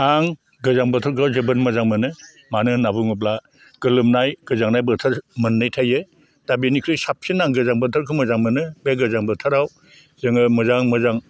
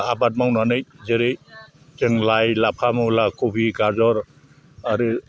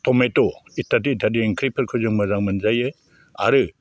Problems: none marked